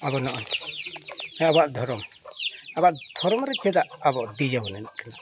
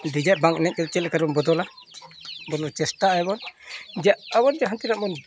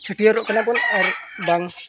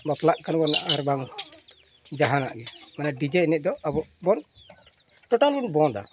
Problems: continuous background conversations